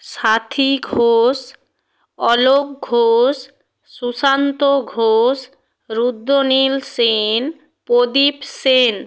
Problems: none marked